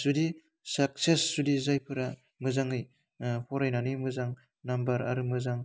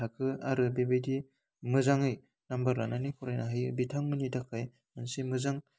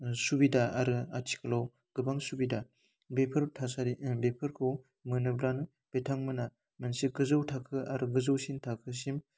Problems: constant background noise